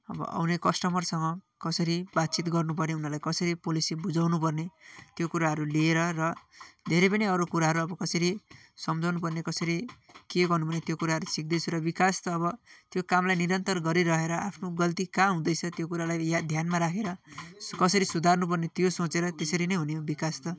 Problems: constant background noise, continuous background conversations